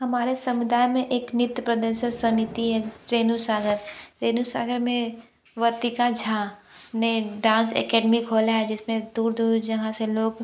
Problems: background sounds at intervals